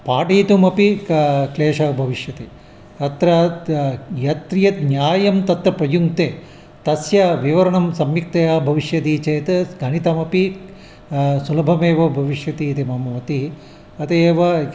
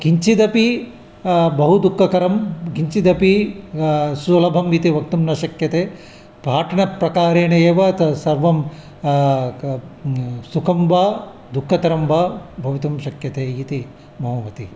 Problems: constant background noise